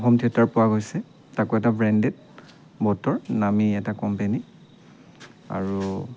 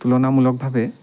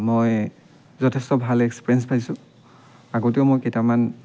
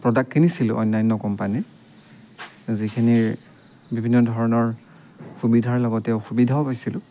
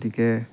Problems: constant background noise